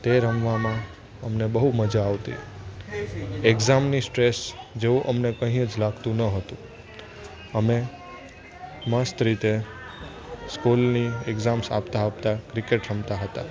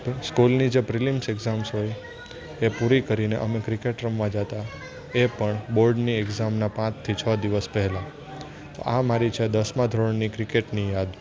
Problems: constant background noise, continuous background conversations